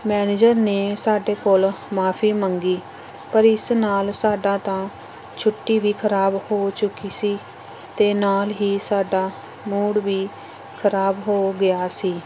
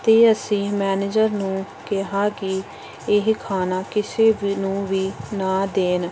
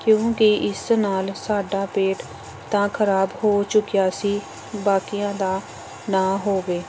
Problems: constant background noise